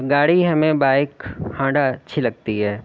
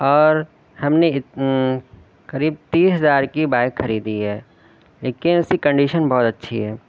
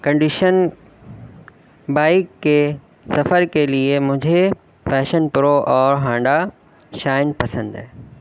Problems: background sounds at intervals